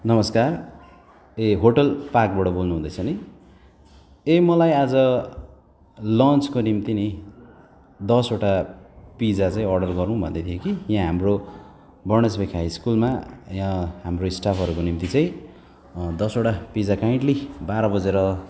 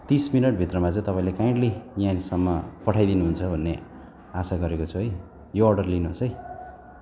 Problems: none marked